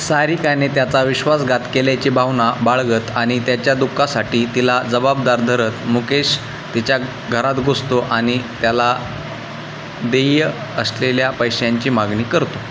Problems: constant background noise